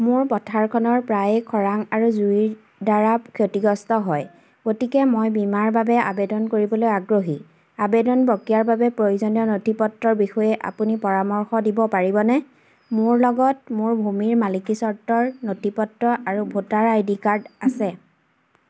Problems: none marked